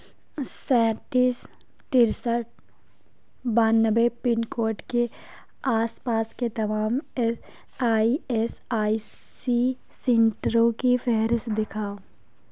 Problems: background sounds at intervals, low volume